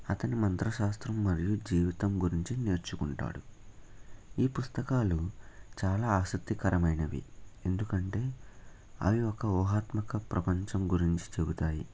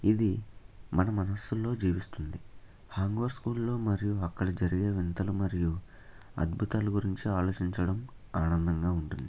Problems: constant background noise